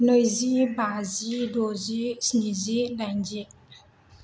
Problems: none marked